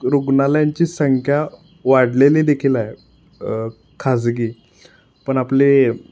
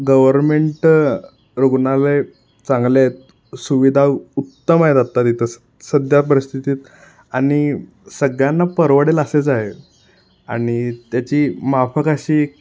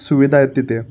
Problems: background sounds at intervals